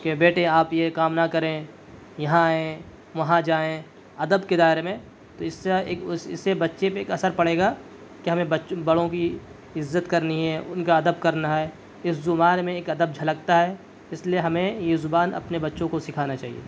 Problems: none marked